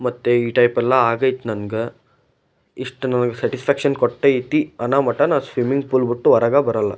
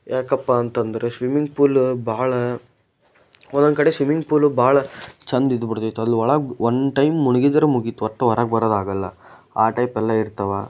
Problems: none marked